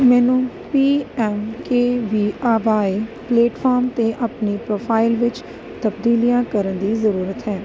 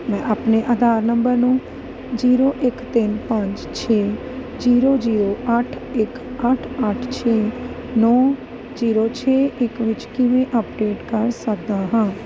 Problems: none marked